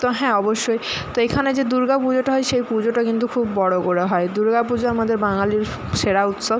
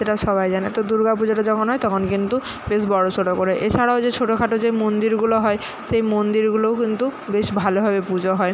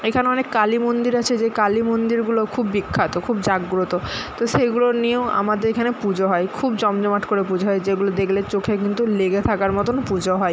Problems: constant background noise